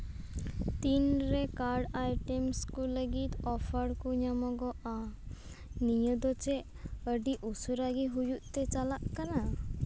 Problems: constant background noise